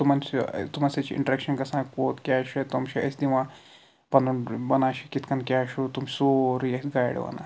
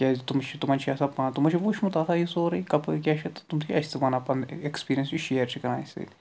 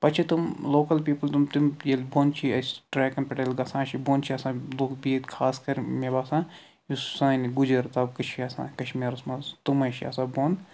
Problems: none marked